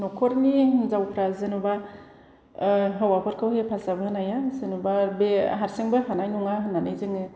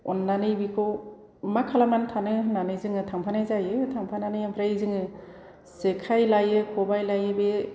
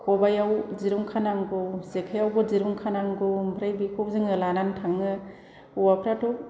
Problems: constant background noise